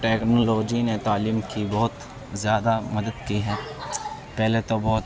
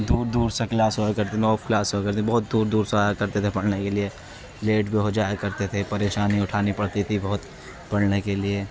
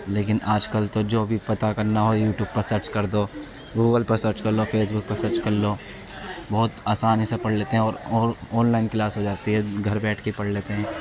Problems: constant background noise